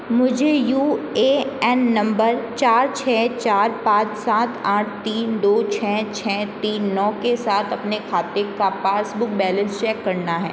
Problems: constant background noise